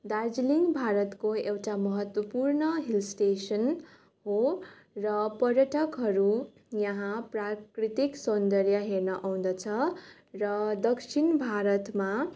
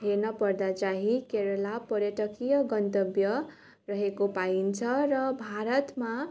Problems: none marked